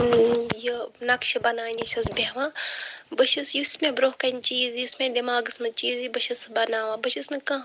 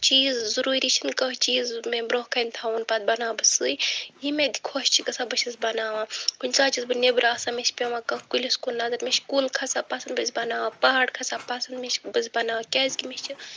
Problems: none marked